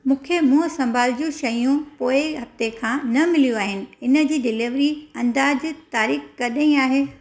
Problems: none marked